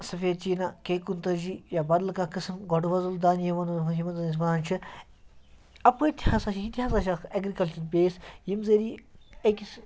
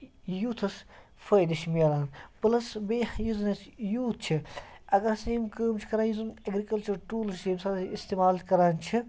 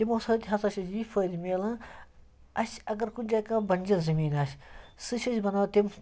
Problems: background sounds at intervals